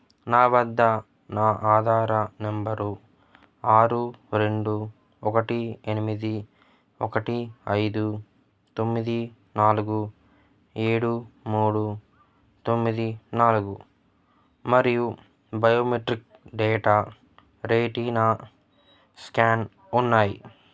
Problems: none marked